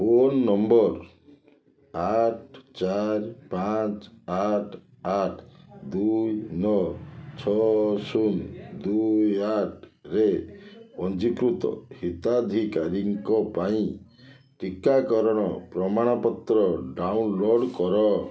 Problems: continuous background conversations